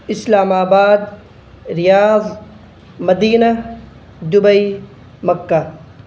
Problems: constant background noise